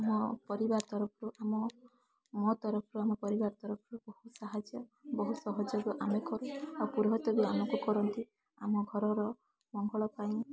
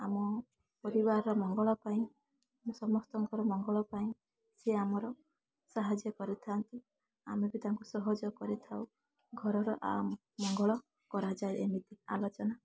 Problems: constant background noise